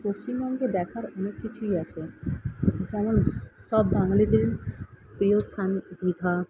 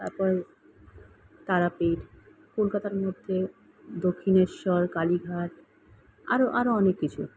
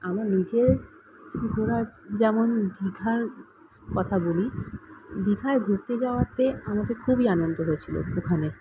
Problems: none marked